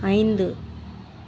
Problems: constant background noise